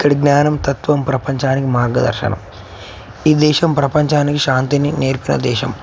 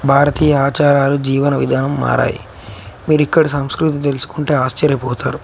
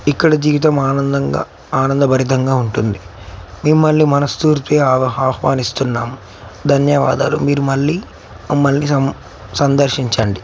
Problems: none marked